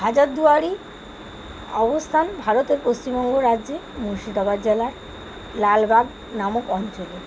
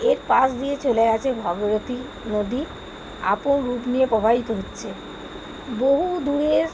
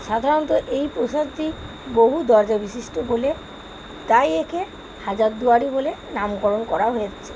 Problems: constant background noise